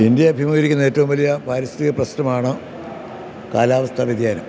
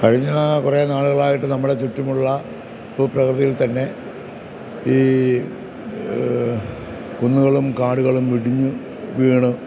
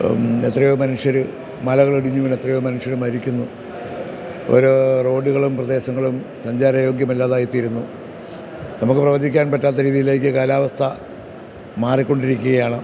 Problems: none marked